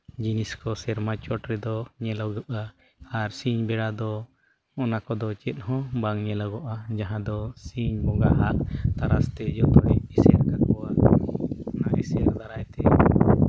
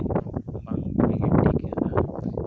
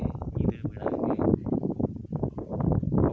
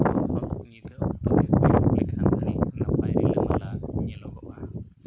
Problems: constant background noise